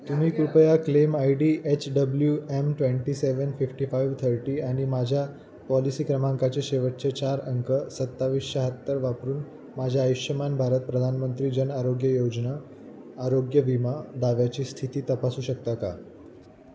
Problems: constant background noise